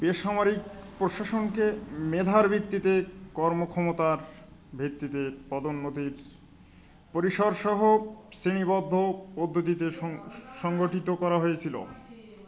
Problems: constant background noise